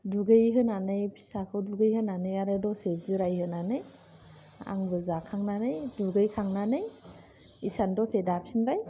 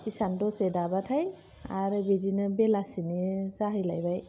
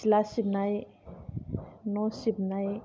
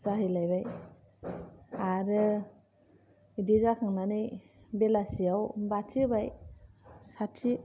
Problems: none marked